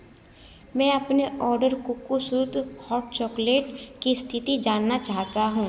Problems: none marked